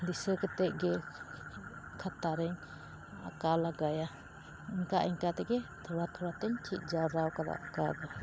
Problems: constant background noise